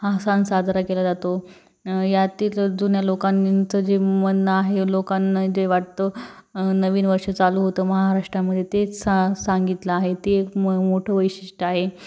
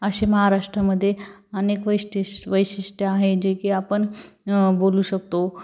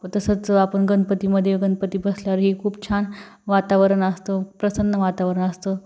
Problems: background sounds at intervals